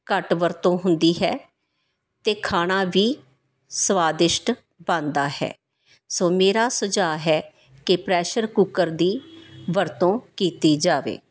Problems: background sounds at intervals